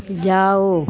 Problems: none marked